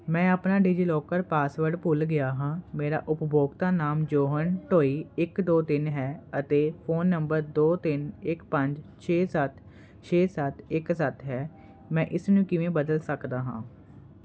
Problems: constant background noise